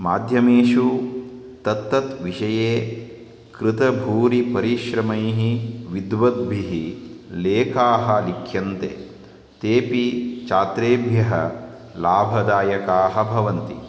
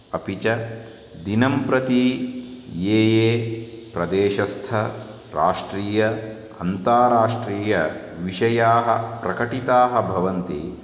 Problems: constant background noise